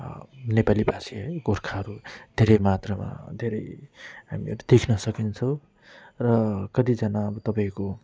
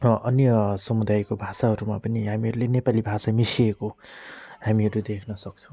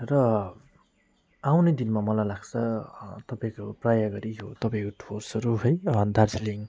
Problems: none marked